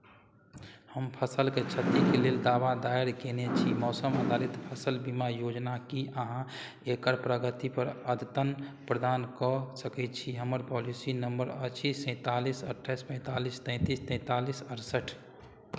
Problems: none marked